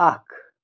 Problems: none marked